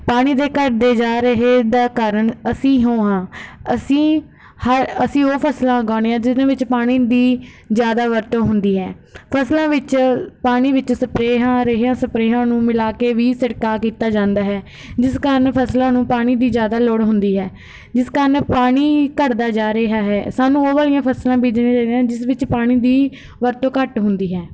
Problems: background sounds at intervals